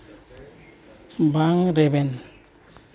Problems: none marked